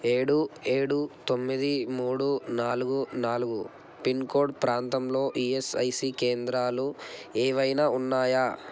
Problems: constant background noise